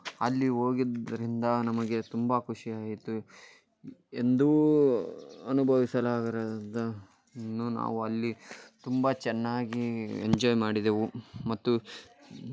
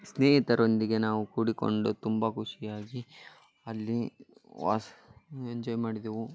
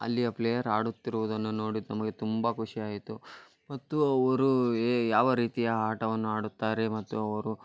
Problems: none marked